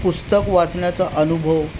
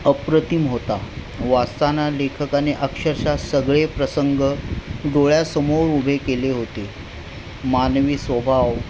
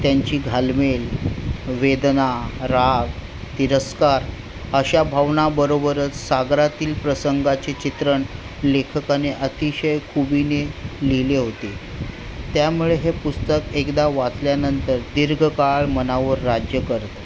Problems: constant background noise, background conversations at intervals